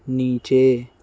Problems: none marked